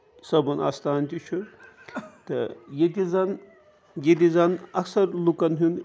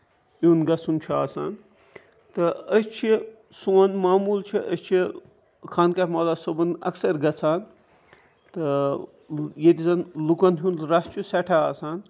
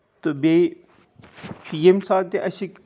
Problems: constant background noise